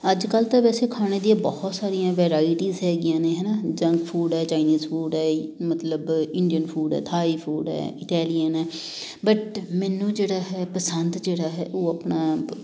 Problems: background sounds at intervals